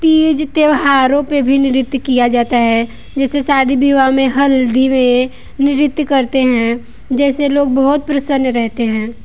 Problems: none marked